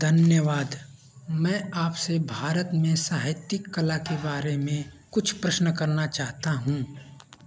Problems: none marked